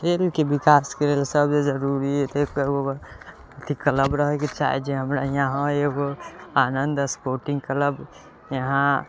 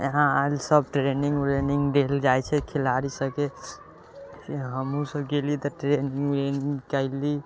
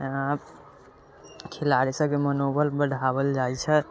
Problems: constant background noise